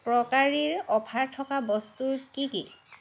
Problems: constant background noise